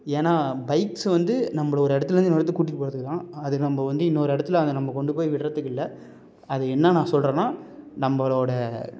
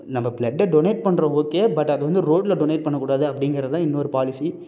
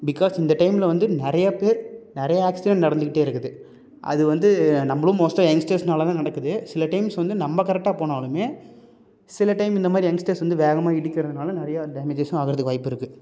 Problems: none marked